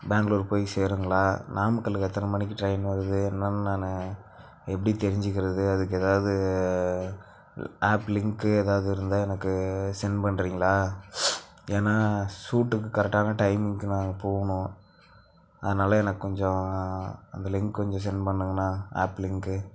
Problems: none marked